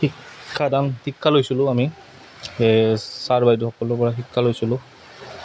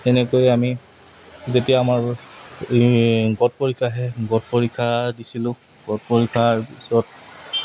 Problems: none marked